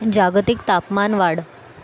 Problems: none marked